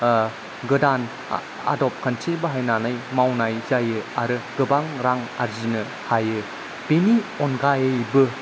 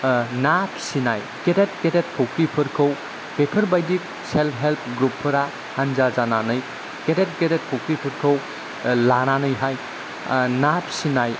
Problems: constant background noise, low volume